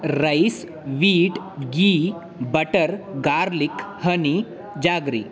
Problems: background sounds at intervals